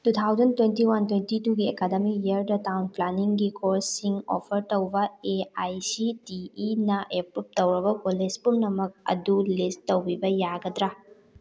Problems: background conversations at intervals